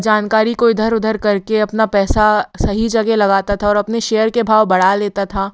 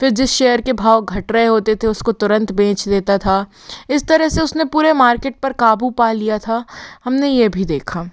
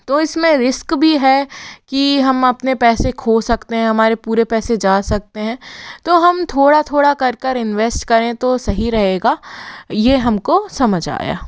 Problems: background sounds at intervals